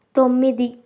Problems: constant background noise